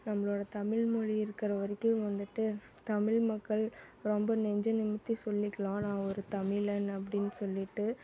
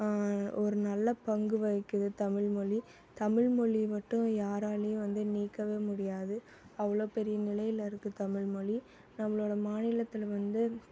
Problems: background conversations at intervals